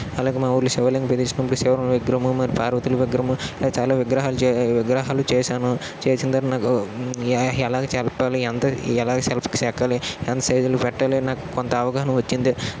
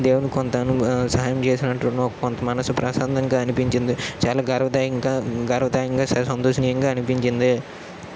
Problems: constant background noise